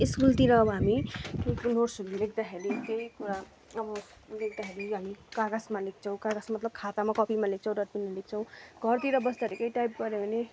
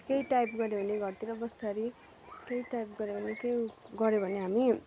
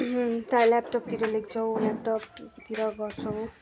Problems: background sounds at intervals